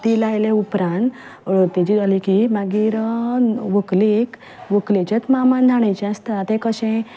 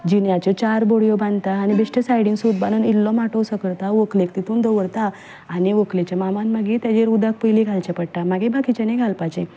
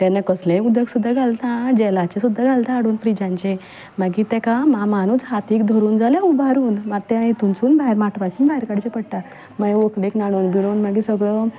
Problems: none marked